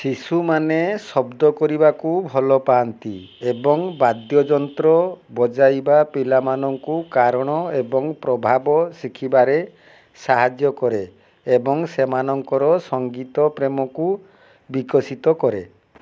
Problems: none marked